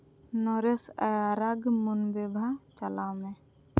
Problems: constant background noise